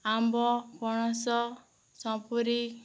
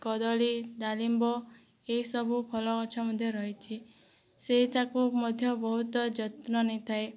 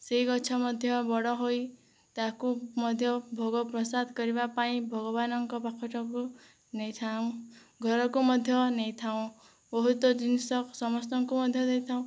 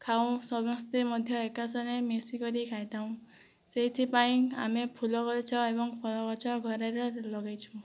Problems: low volume